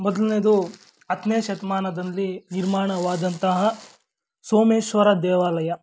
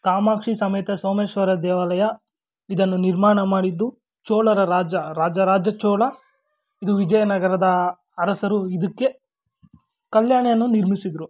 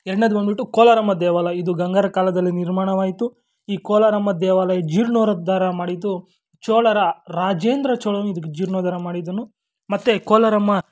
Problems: background sounds at intervals